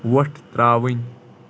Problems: constant background noise